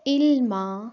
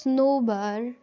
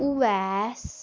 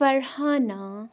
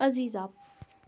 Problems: none marked